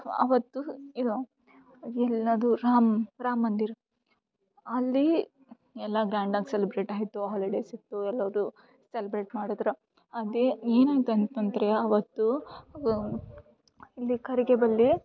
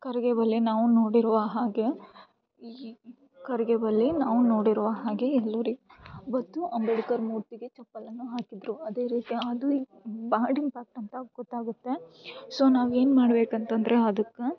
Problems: background sounds at intervals